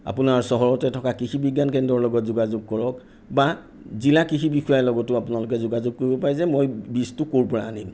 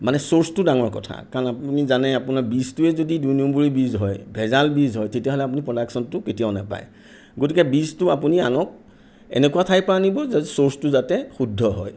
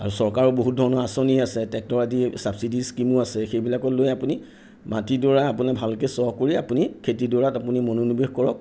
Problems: none marked